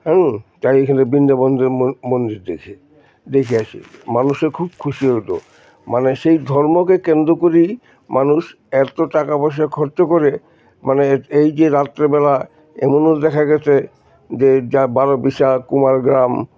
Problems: constant background noise